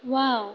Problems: constant background noise